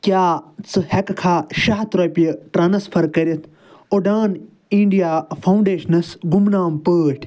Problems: none marked